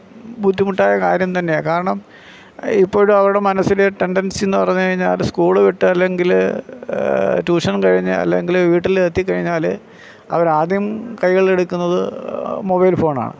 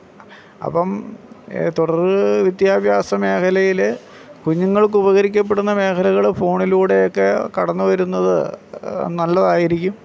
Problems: none marked